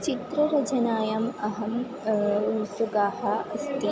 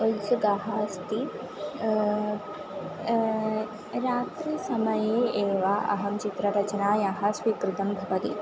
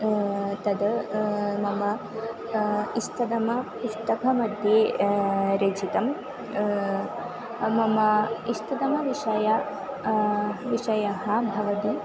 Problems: constant background noise